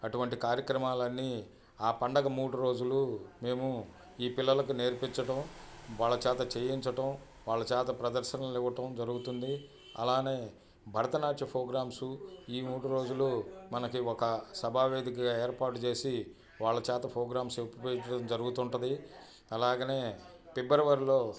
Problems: constant background noise, background conversations at intervals